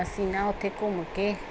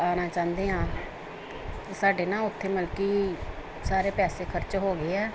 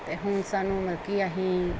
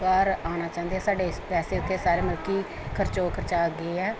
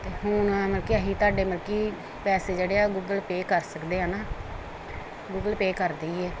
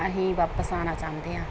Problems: none marked